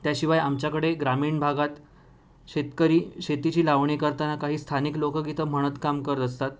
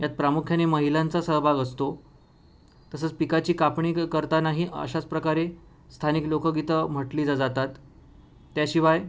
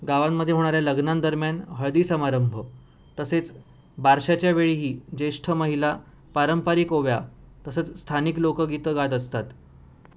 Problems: none marked